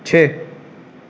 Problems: constant background noise